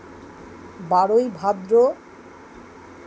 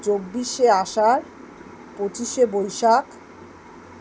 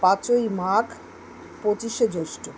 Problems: none marked